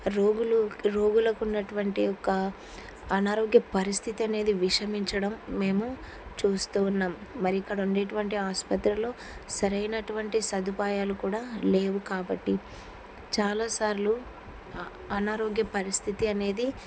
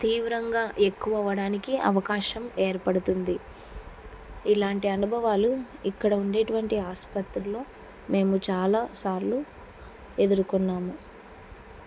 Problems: none marked